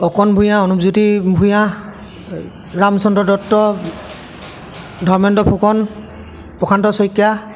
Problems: constant background noise, continuous background conversations